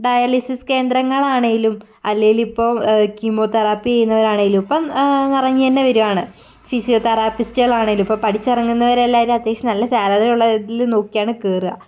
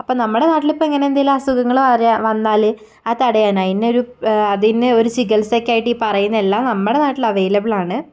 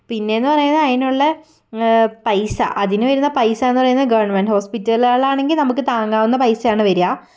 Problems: none marked